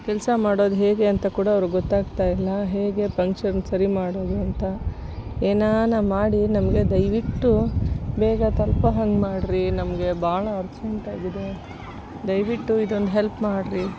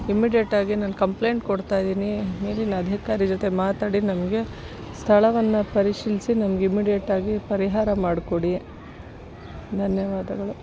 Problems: constant background noise